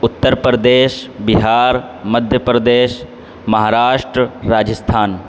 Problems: constant background noise